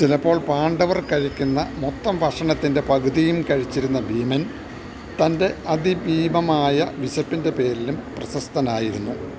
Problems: none marked